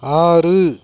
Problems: none marked